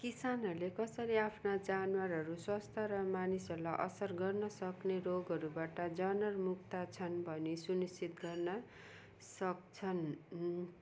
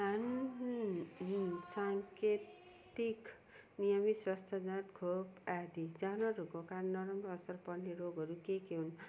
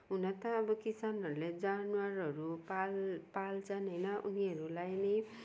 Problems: none marked